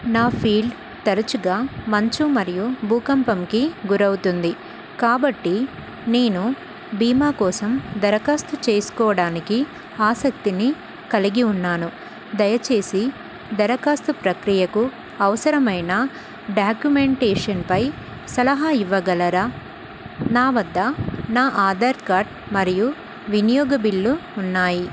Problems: constant background noise